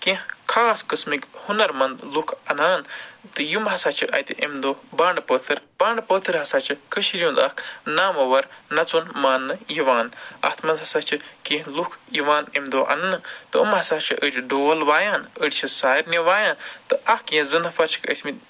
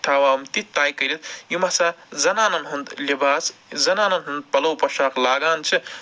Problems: none marked